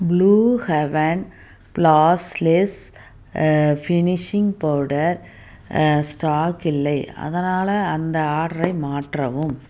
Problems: none marked